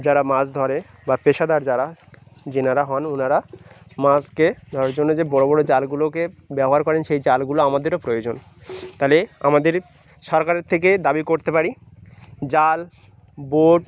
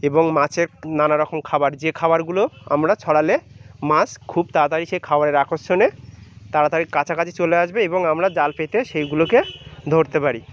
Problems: none marked